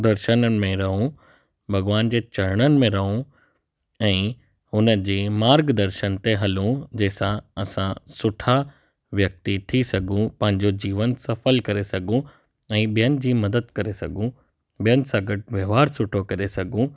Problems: none marked